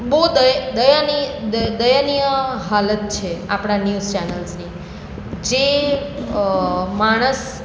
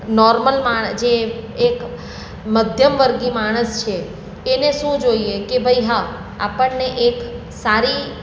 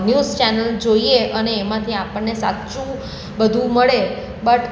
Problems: none marked